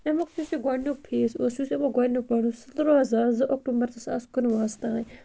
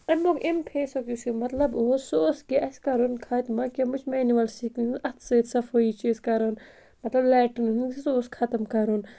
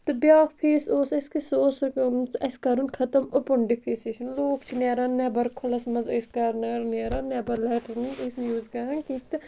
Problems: constant background noise